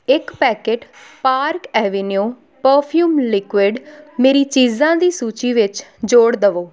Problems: background conversations at intervals